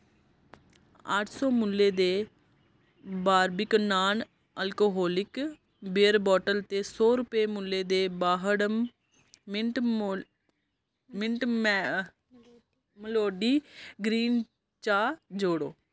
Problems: none marked